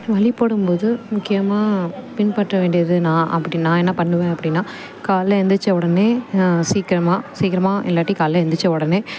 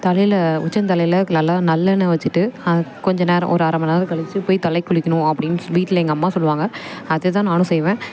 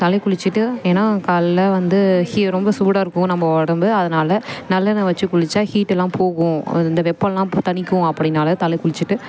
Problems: background sounds at intervals